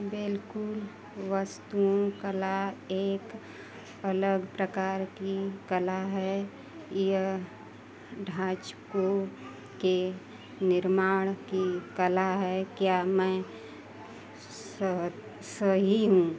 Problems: none marked